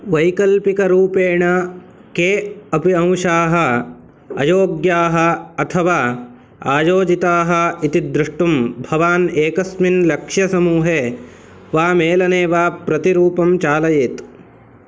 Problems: none marked